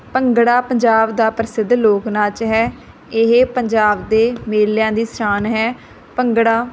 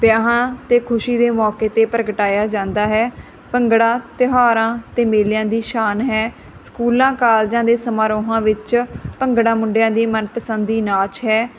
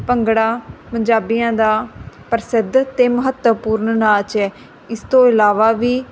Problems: none marked